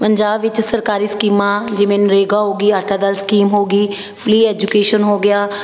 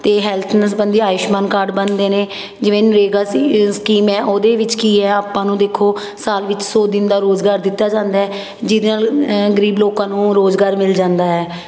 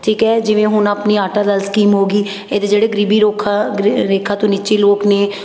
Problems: constant background noise